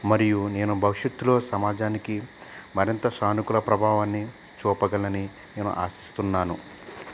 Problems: constant background noise